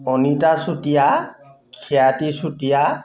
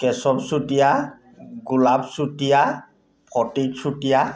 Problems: none marked